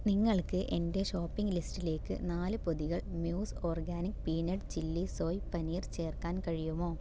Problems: low volume